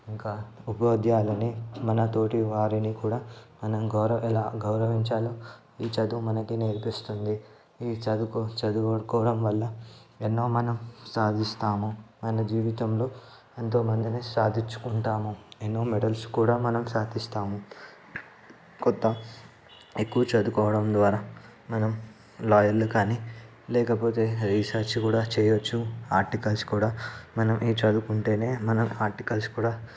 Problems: background sounds at intervals, background conversations at intervals